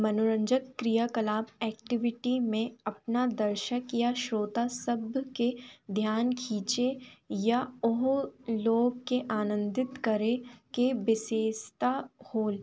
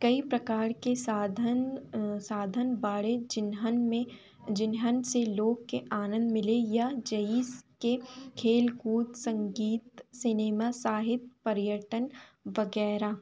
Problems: constant background noise